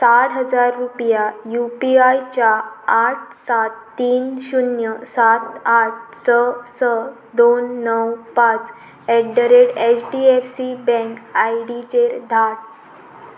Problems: none marked